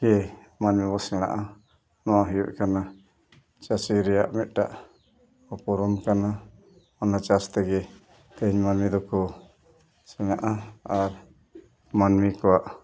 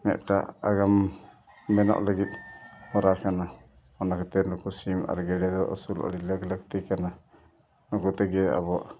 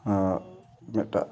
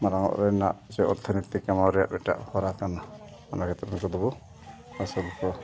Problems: background sounds at intervals, background conversations at intervals